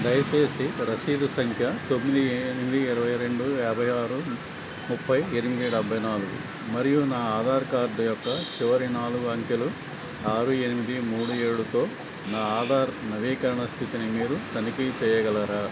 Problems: constant background noise